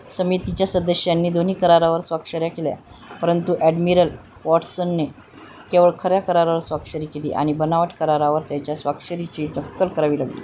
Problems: constant background noise